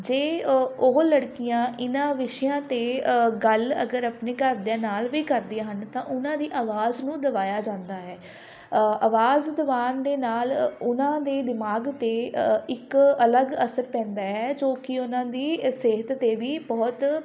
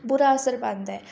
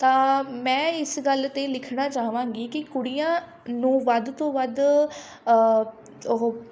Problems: continuous background conversations